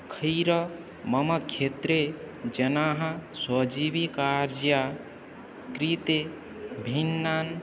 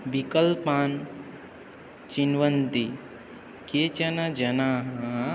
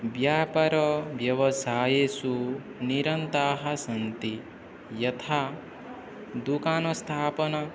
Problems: constant background noise, background conversations at intervals